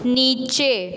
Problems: constant background noise